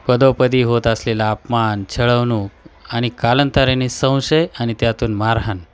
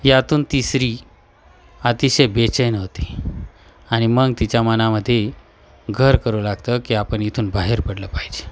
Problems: none marked